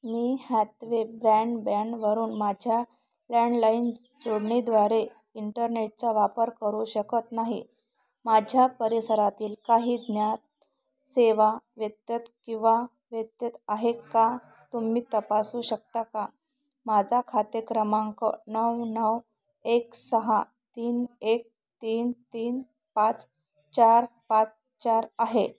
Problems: none marked